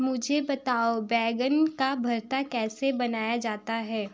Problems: background sounds at intervals